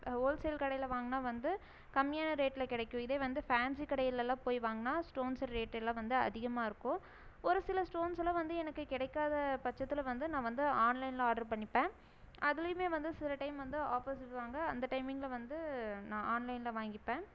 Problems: none marked